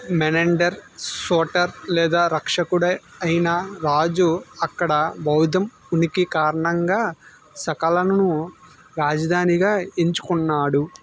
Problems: low volume